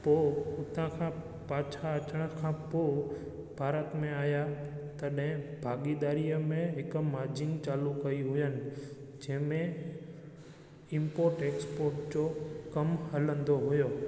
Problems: constant background noise, echo